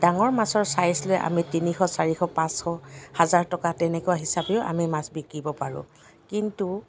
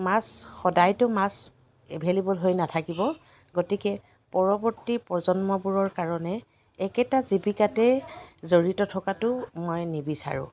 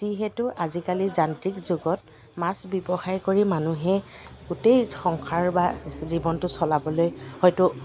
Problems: none marked